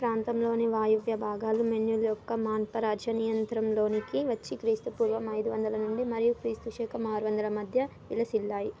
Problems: background sounds at intervals